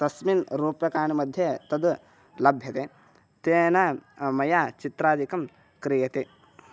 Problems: none marked